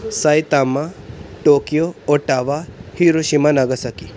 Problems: background sounds at intervals